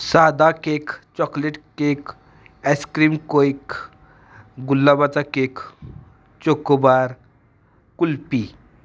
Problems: constant background noise